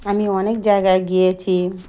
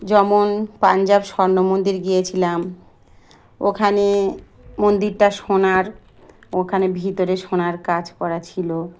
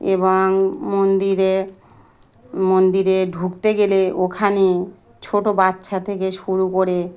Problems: none marked